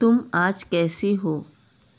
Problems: none marked